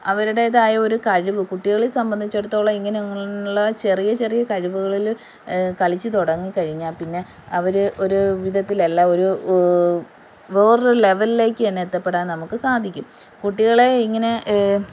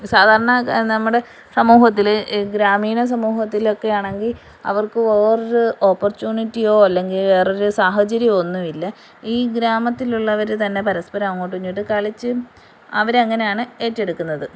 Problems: none marked